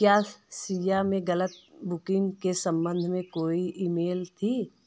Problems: constant background noise